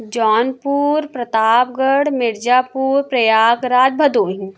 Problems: constant background noise